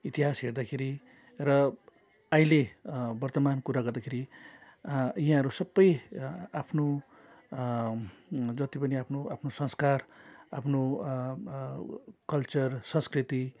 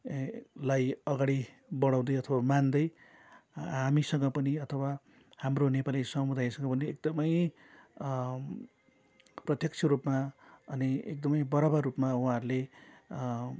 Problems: none marked